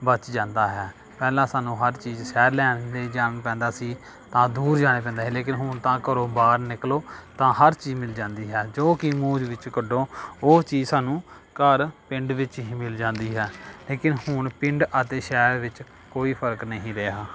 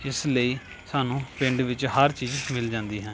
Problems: background sounds at intervals